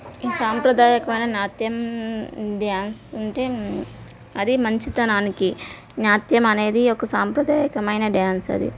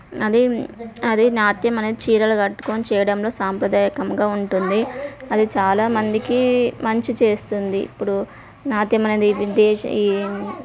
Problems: background conversations at intervals